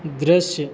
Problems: none marked